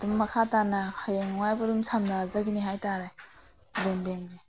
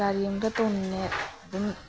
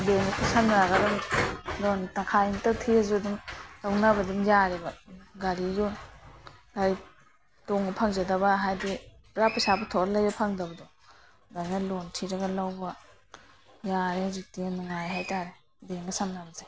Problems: background sounds at intervals